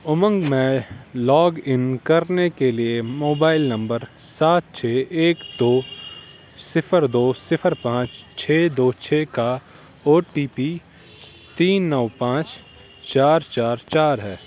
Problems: constant background noise